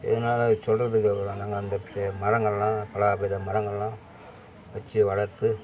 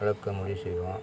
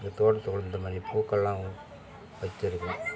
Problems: none marked